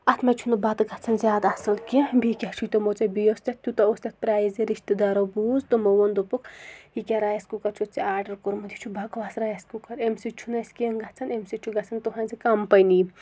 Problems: none marked